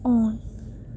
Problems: low volume